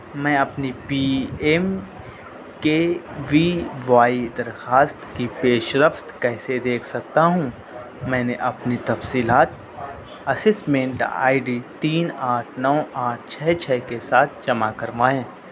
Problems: constant background noise, low volume